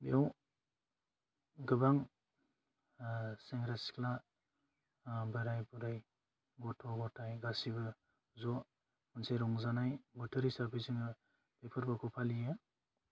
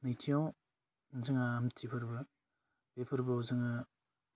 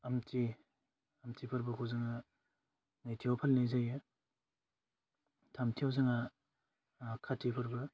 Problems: constant background noise